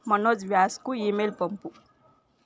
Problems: echo